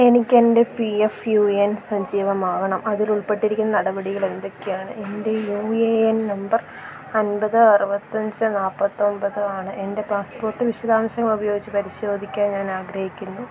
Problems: constant background noise, low volume